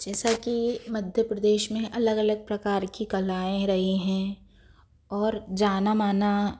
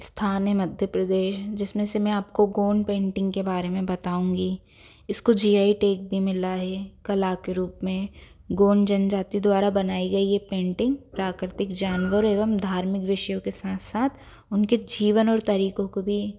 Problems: none marked